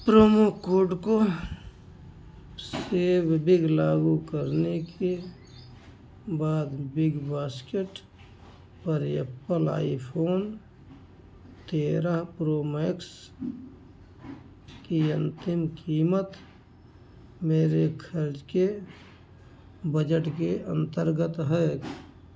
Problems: background sounds at intervals